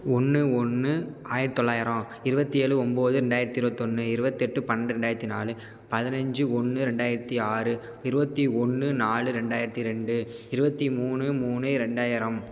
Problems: none marked